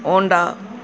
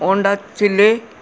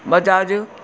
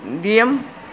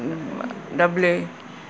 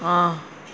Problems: constant background noise